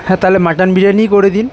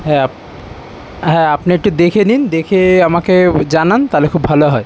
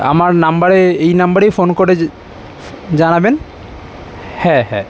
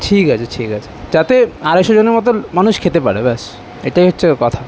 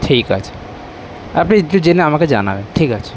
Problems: constant background noise